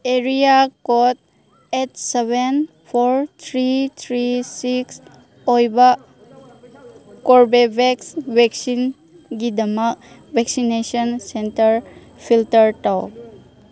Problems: constant background noise